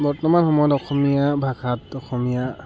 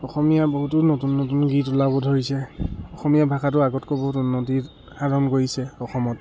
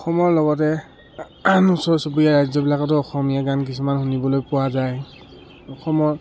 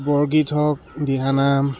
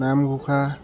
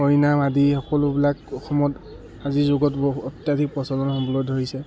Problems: background sounds at intervals